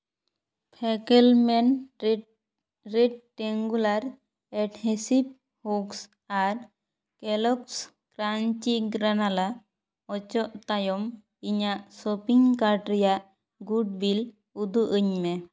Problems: none marked